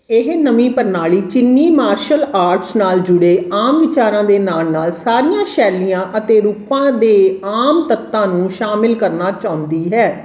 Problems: constant background noise, background conversations at intervals